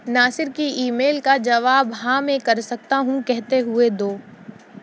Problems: none marked